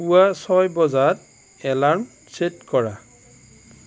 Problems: constant background noise